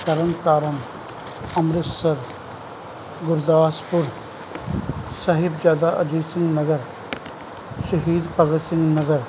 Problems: none marked